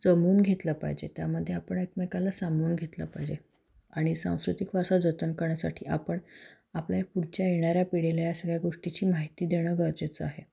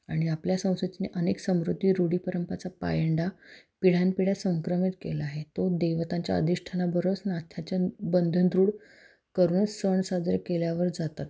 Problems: none marked